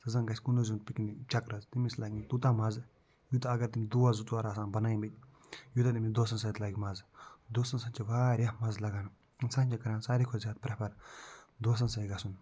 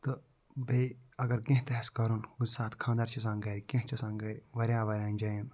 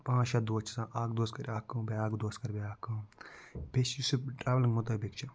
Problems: low volume